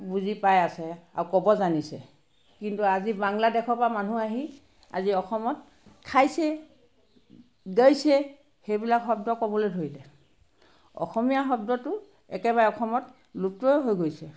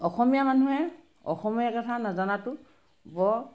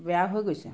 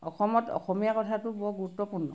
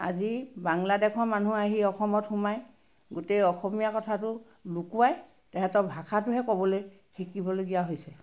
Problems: background sounds at intervals